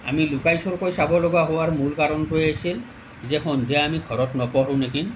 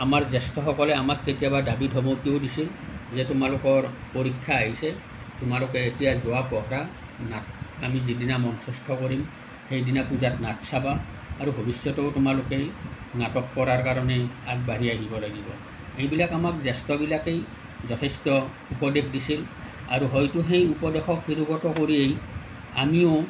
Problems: none marked